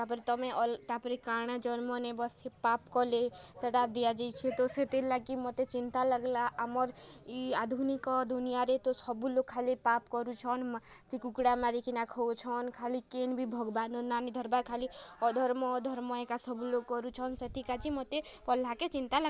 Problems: none marked